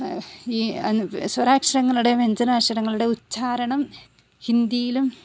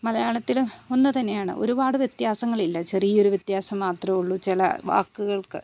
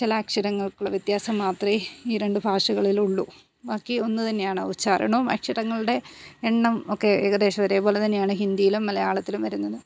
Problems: none marked